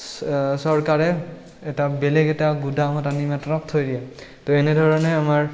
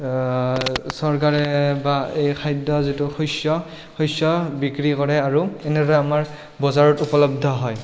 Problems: background sounds at intervals